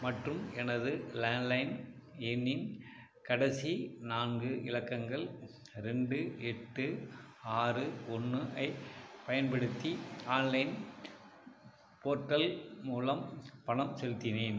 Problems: background sounds at intervals